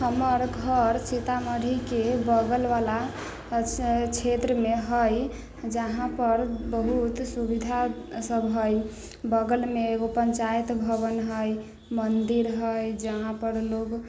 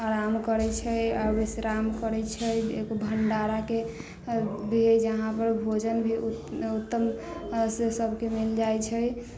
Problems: low volume